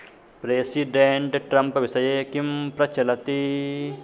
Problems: constant background noise, background conversations at intervals